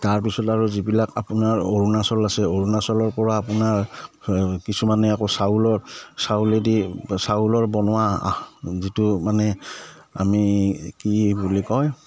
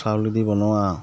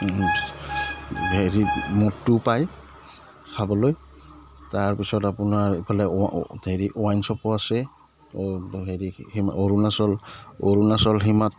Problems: none marked